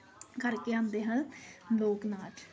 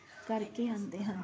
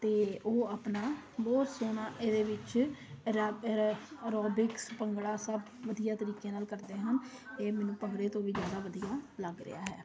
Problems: constant background noise